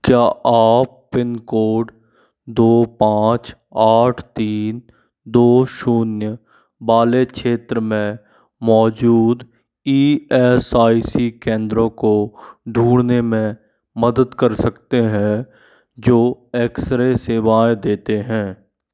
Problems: constant background noise